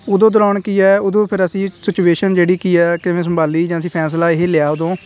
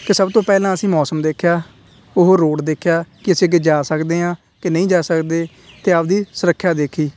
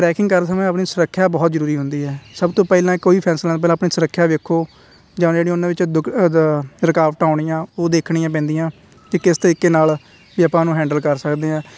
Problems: constant background noise